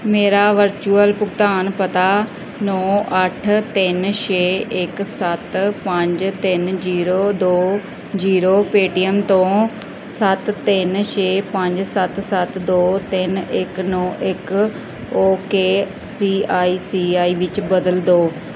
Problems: none marked